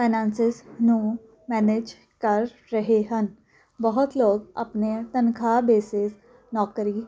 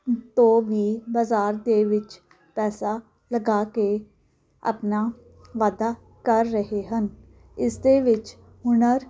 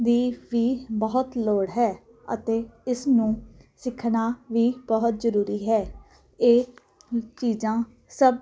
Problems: none marked